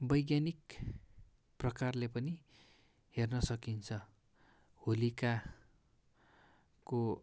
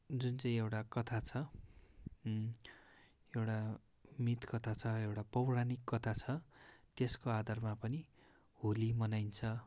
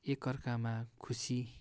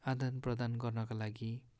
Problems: background sounds at intervals